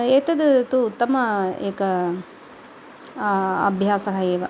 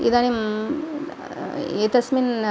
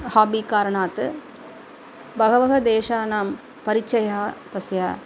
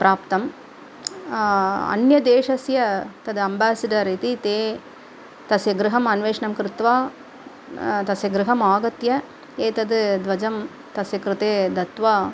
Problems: background sounds at intervals, background conversations at intervals